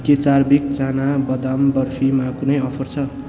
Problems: constant background noise